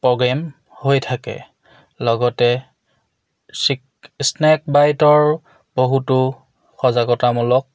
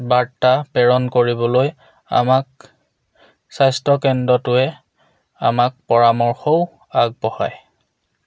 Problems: none marked